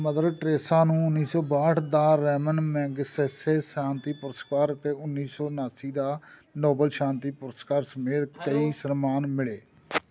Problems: constant background noise